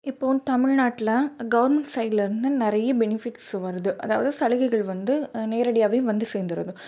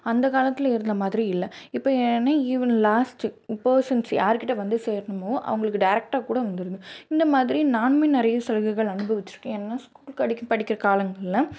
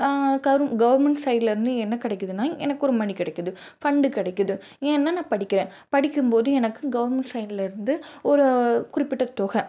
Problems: none marked